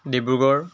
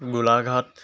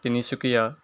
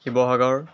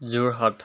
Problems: constant background noise